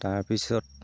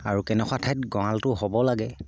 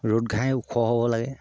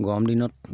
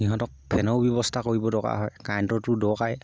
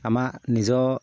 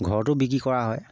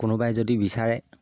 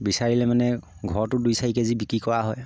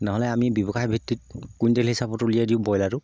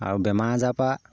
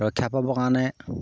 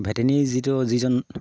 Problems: low volume